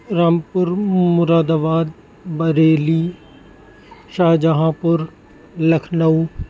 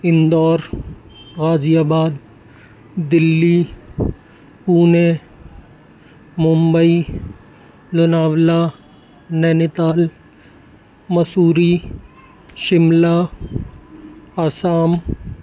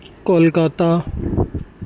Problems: constant background noise